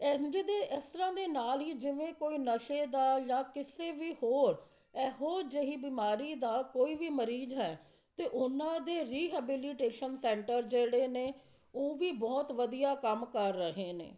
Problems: constant background noise, background conversations at intervals